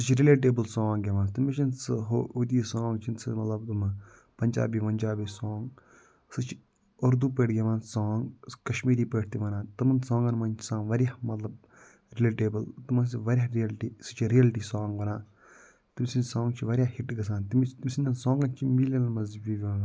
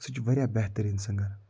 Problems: background sounds at intervals